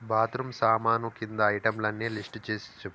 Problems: constant background noise